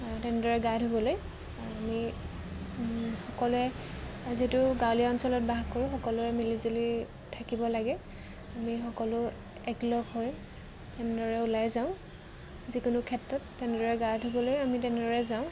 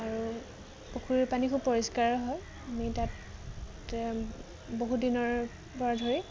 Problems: none marked